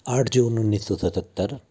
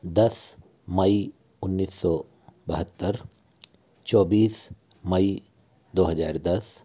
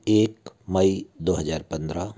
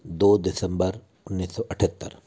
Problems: low volume